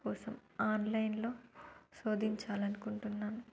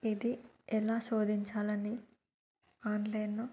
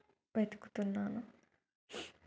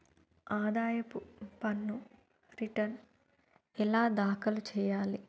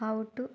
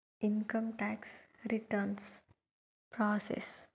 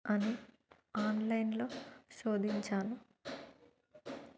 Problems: low volume